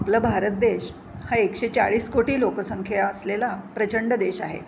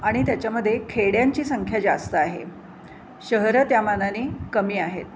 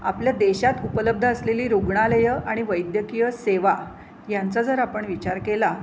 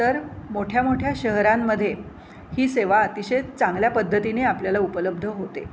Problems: constant background noise